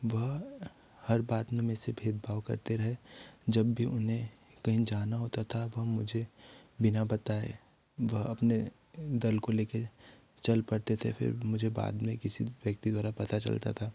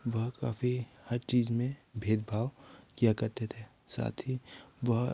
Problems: none marked